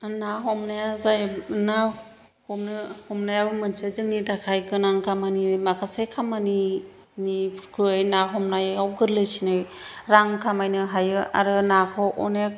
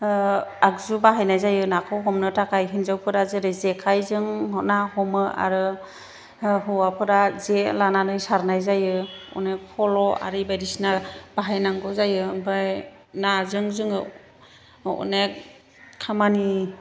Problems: none marked